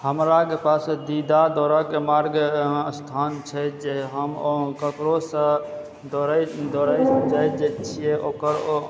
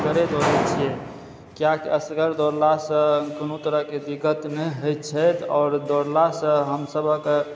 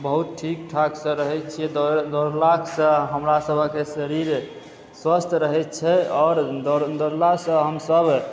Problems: background sounds at intervals